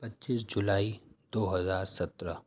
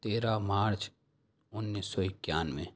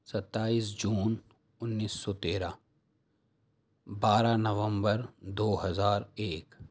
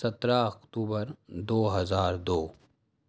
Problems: none marked